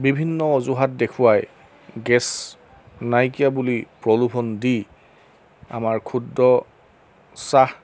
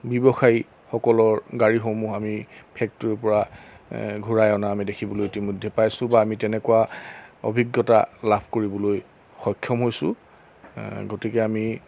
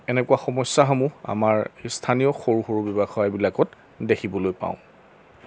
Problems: none marked